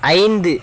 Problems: background sounds at intervals